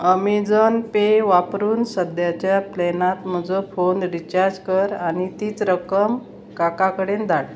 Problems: constant background noise